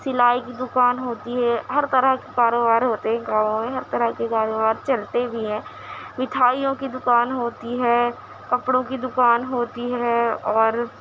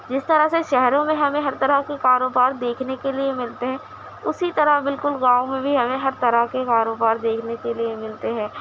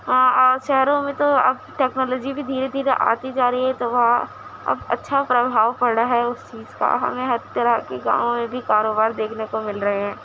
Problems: constant background noise